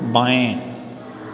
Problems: constant background noise